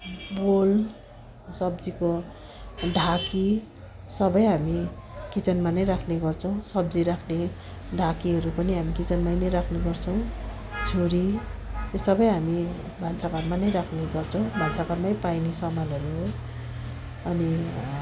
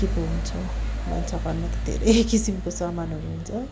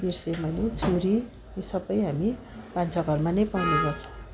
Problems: constant background noise, continuous background conversations